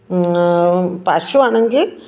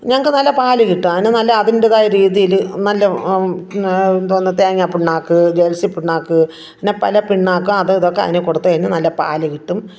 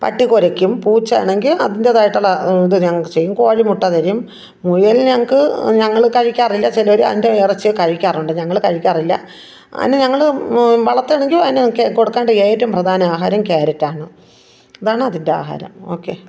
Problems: none marked